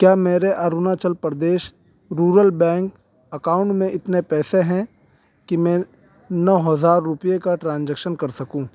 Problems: constant background noise